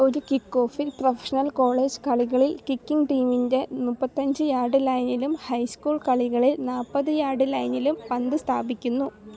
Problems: none marked